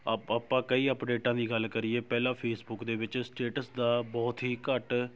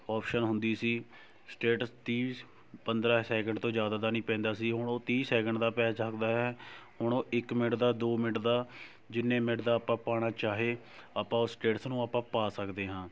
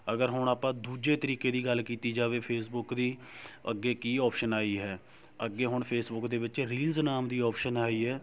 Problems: none marked